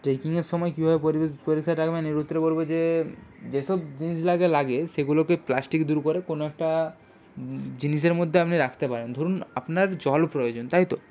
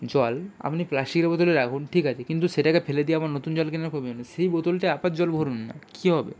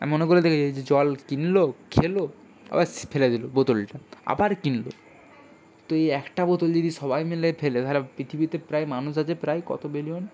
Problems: background sounds at intervals